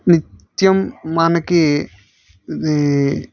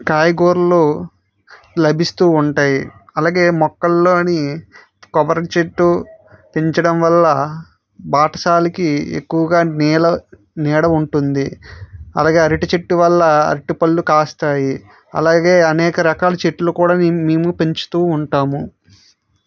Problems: none marked